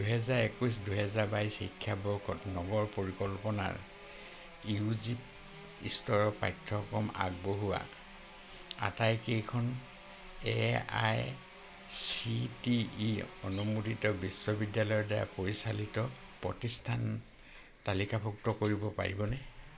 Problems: none marked